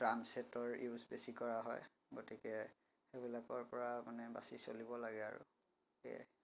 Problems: background sounds at intervals